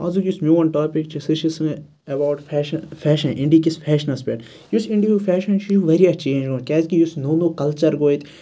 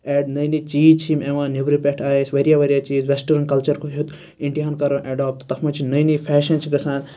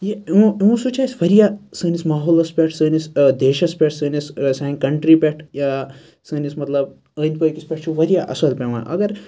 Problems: none marked